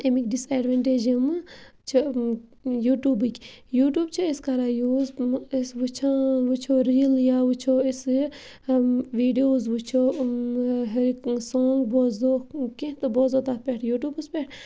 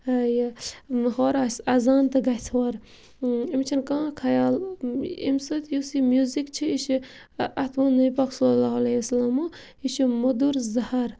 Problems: none marked